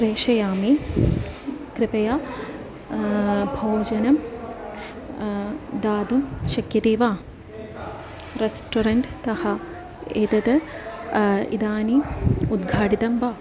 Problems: background sounds at intervals